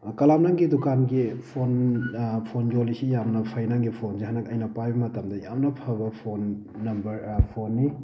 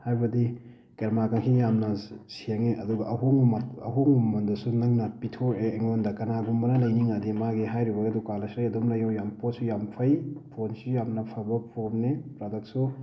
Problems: constant background noise